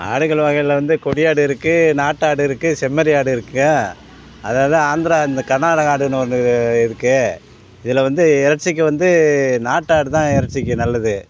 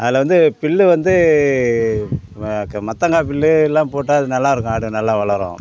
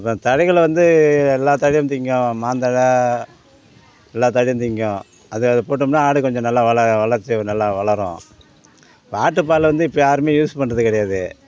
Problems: constant background noise, continuous background conversations